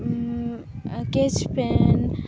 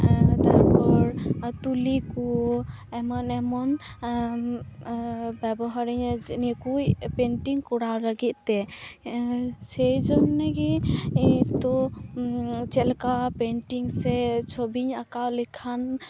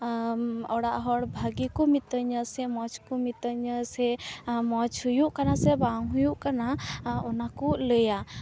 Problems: background sounds at intervals